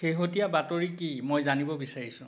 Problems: background sounds at intervals